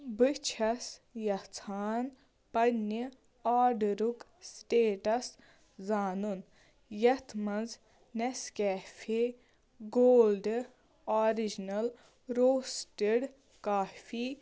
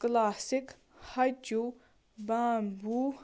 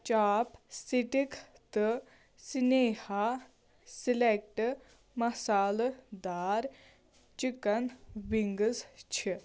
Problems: background sounds at intervals